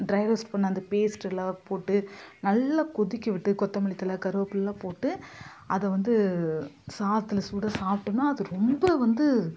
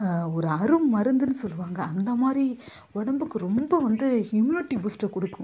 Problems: none marked